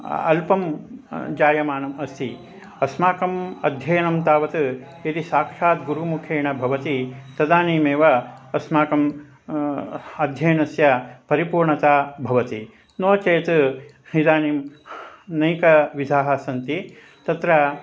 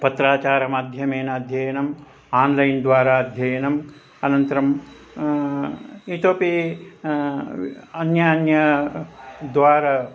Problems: constant background noise, continuous background conversations